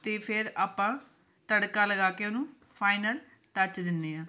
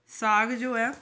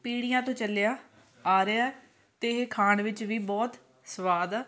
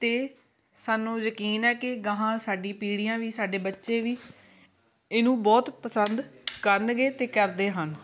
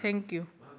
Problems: background sounds at intervals, continuous background conversations